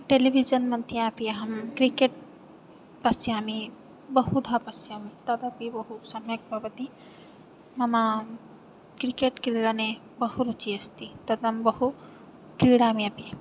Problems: background sounds at intervals